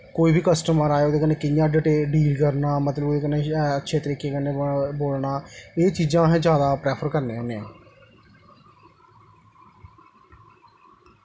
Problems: echo